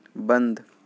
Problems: none marked